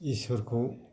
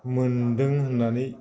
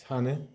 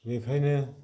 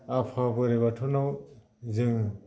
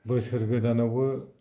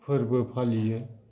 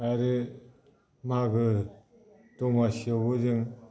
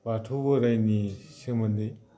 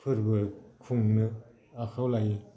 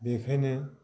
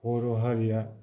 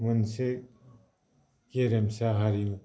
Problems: low volume